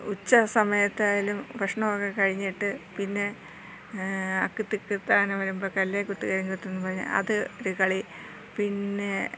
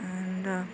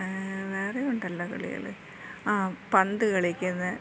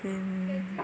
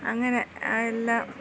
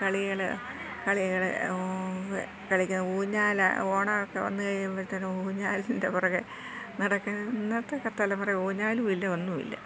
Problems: low volume